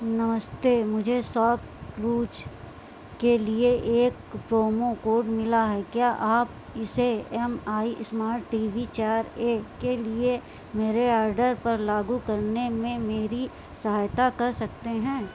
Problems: constant background noise